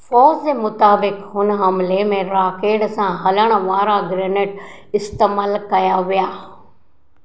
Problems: none marked